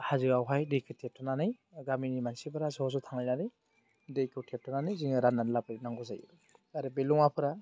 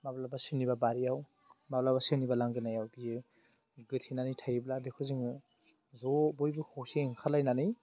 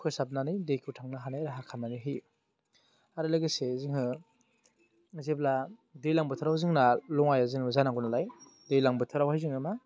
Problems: low volume